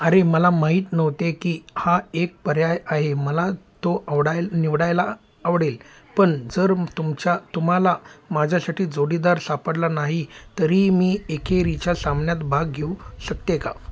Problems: background sounds at intervals